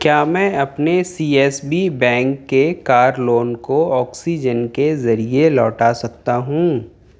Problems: none marked